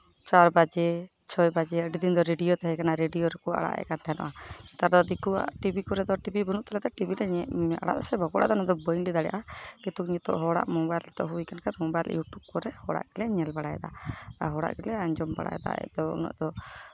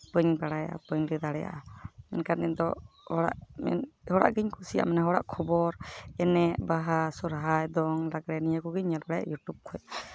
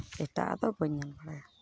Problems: none marked